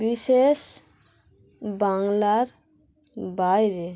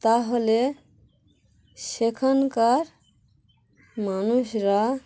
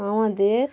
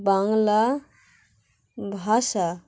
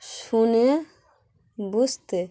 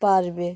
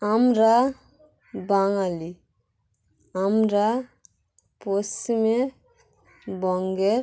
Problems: constant background noise, continuous background conversations